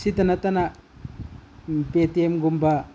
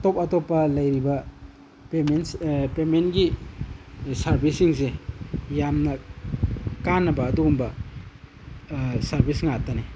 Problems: none marked